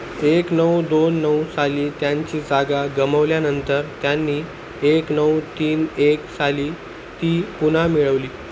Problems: constant background noise